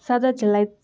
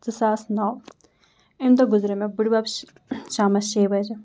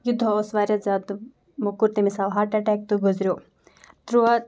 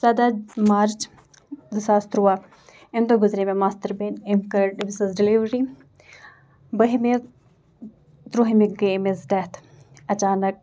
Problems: background sounds at intervals